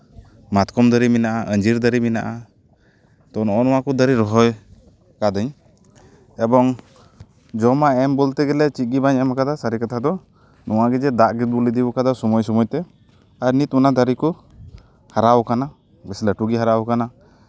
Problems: none marked